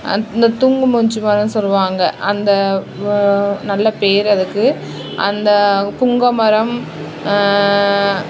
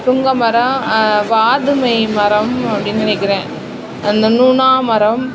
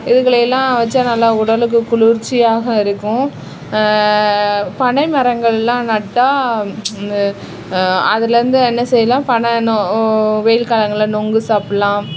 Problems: constant background noise